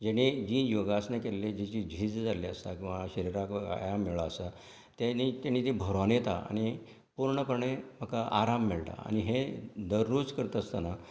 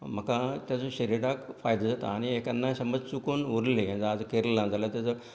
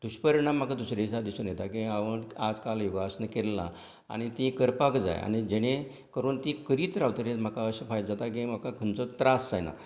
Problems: none marked